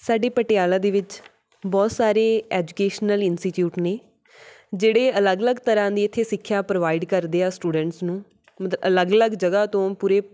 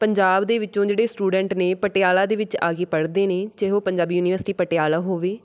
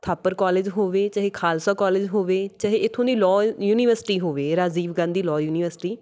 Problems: background sounds at intervals